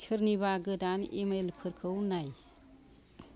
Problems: background conversations at intervals